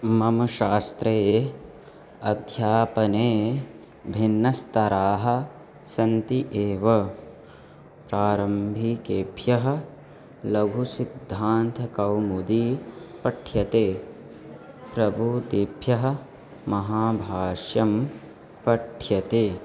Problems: constant background noise